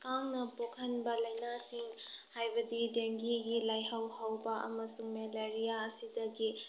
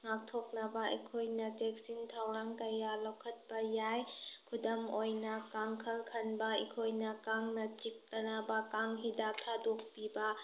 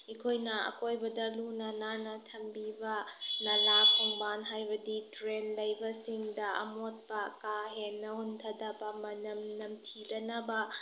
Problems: none marked